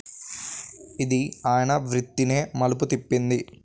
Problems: background sounds at intervals